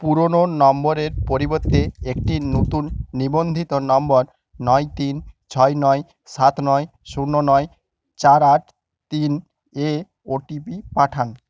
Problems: background sounds at intervals